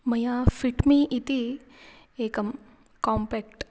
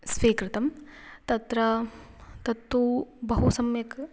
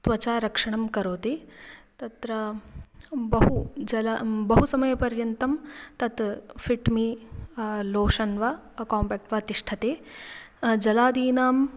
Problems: background sounds at intervals